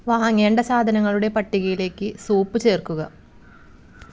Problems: background sounds at intervals